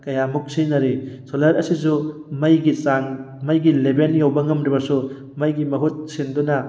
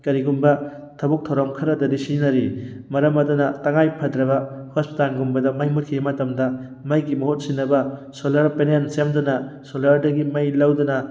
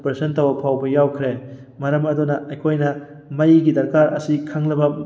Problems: background sounds at intervals